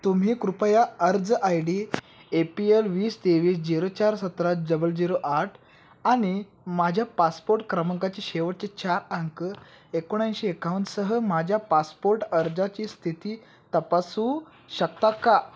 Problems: constant background noise